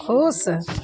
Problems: constant background noise